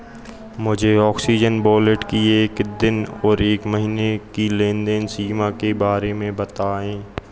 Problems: continuous background conversations